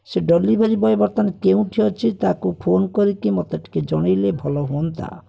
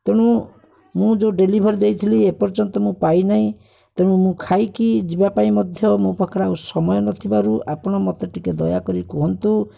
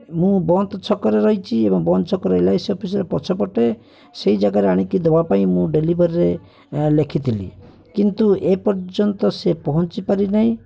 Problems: constant background noise, continuous background conversations